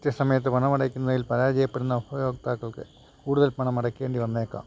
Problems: constant background noise, low volume